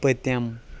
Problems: constant background noise